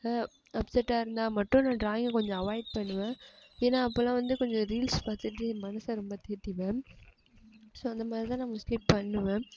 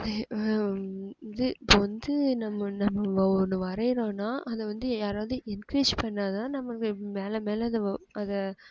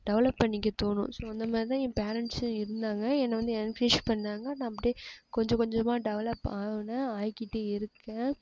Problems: low volume